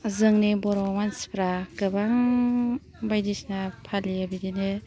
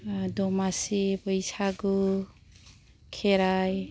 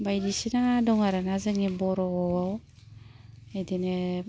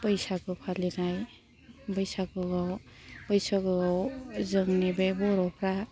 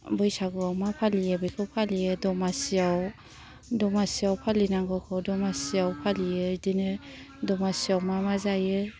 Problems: none marked